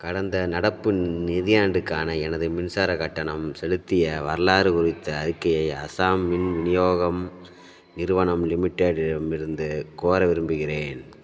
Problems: background sounds at intervals